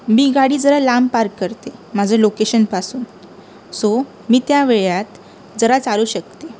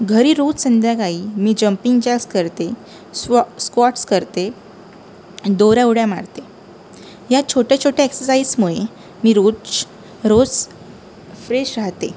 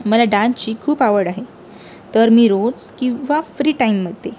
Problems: background sounds at intervals